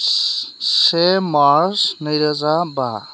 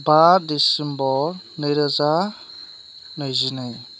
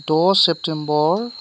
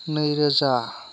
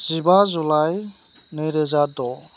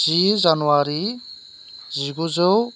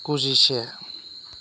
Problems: none marked